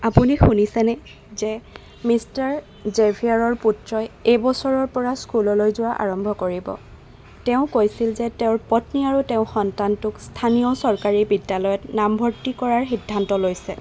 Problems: constant background noise